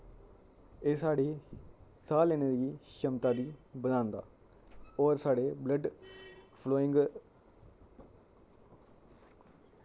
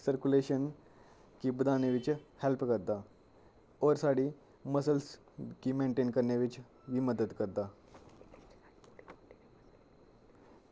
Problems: low volume